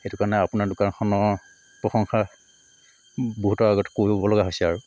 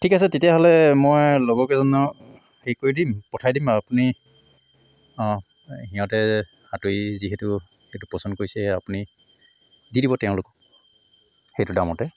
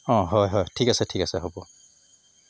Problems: constant background noise